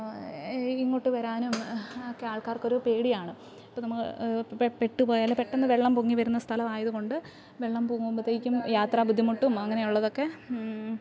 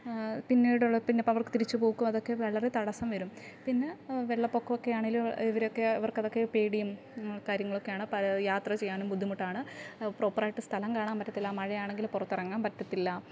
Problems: low volume